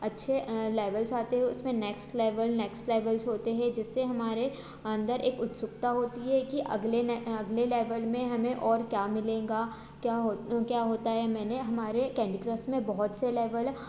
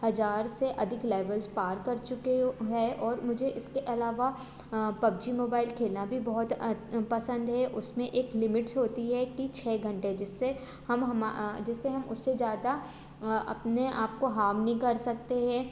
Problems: constant background noise